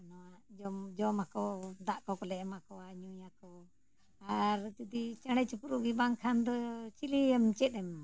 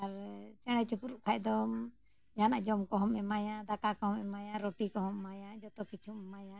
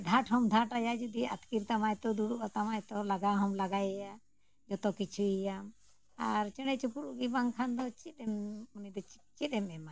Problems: background sounds at intervals